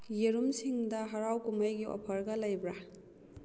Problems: none marked